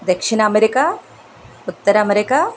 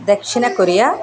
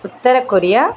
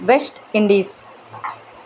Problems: background sounds at intervals